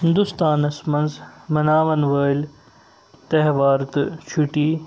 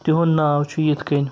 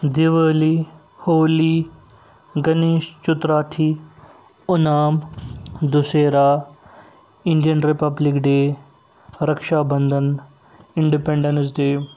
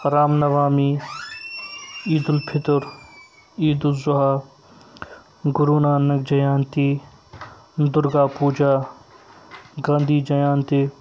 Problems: background sounds at intervals